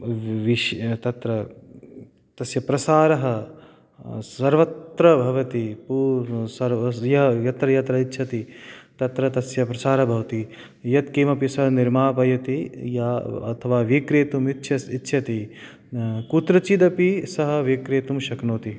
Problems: none marked